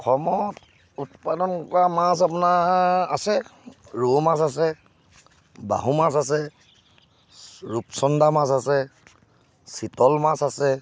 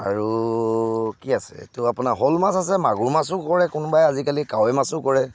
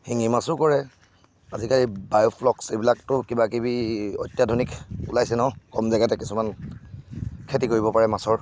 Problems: none marked